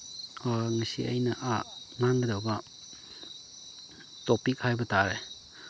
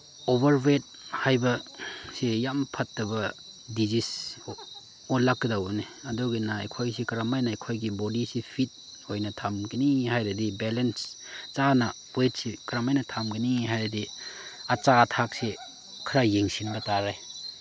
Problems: none marked